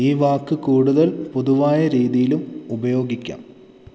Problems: constant background noise